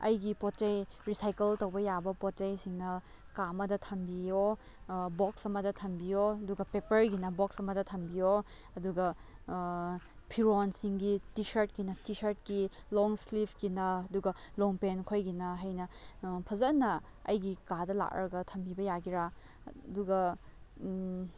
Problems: low volume